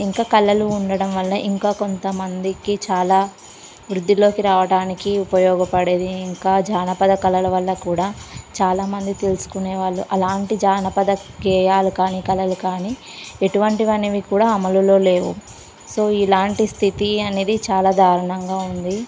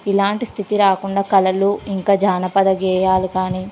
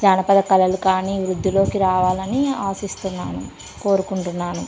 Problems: constant background noise